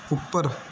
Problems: none marked